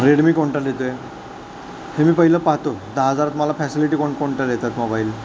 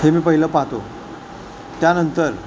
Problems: constant background noise